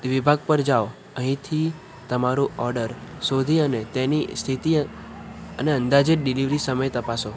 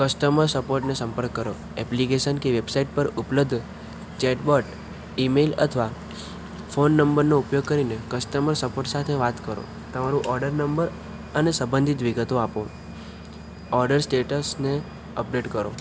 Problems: none marked